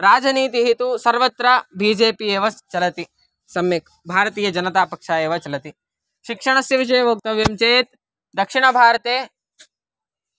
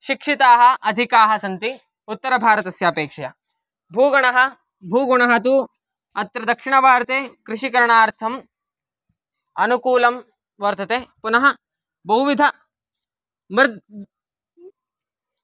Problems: none marked